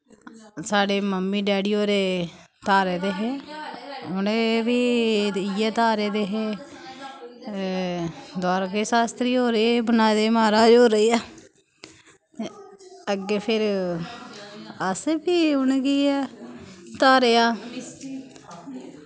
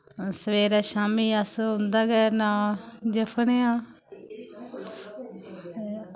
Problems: constant background noise